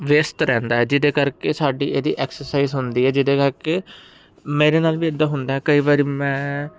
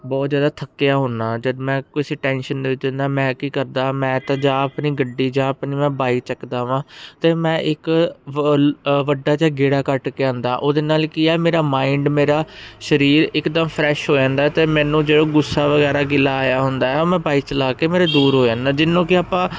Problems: constant background noise